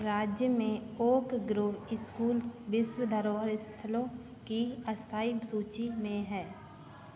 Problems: none marked